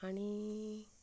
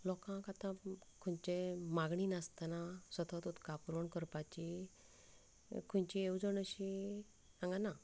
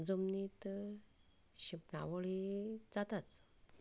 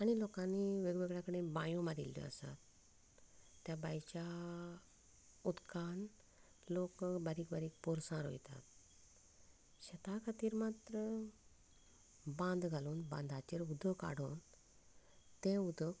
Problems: constant background noise, low volume